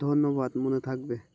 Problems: constant background noise